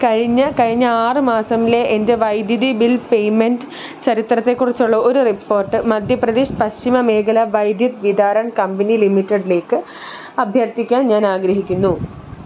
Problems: background sounds at intervals